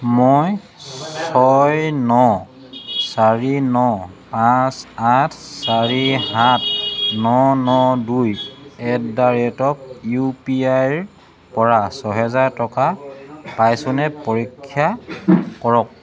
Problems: continuous background conversations